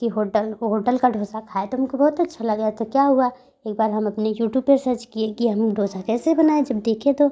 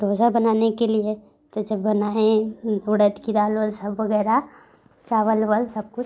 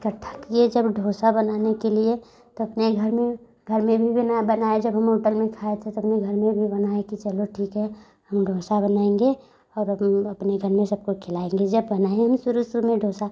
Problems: none marked